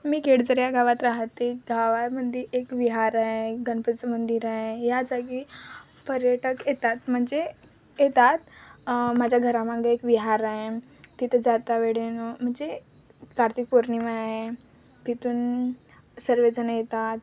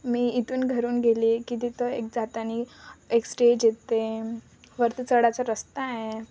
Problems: constant background noise, continuous background conversations